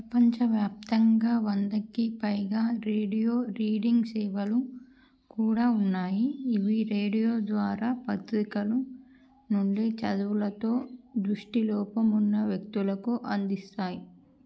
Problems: none marked